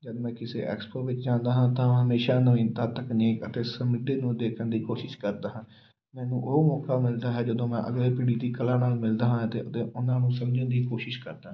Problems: background sounds at intervals